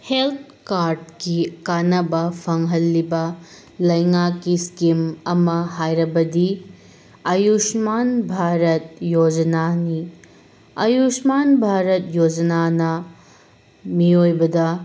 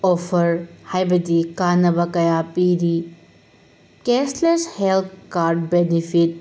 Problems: constant background noise